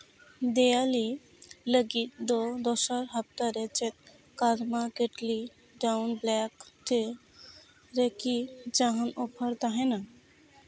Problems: none marked